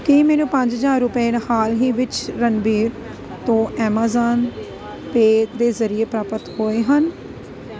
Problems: constant background noise